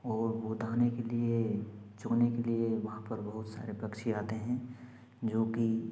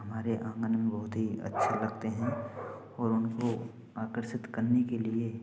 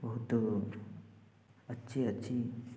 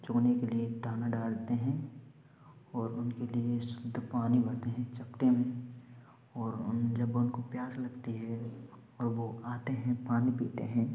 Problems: none marked